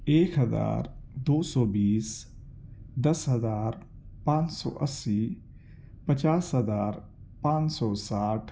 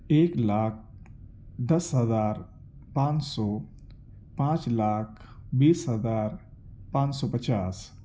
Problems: none marked